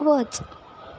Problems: constant background noise